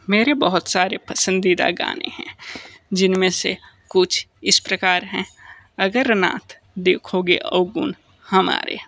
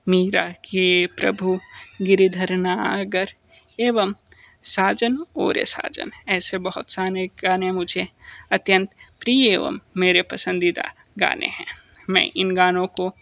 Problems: constant background noise